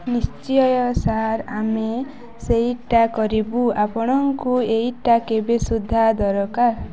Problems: continuous background conversations